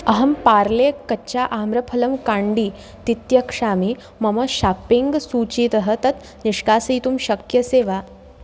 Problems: constant background noise